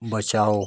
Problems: constant background noise